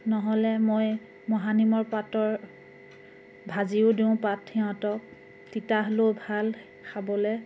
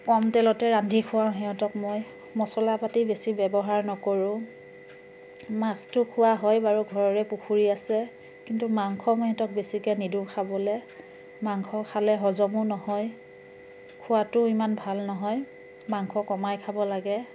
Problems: constant background noise